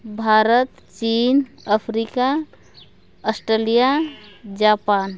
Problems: none marked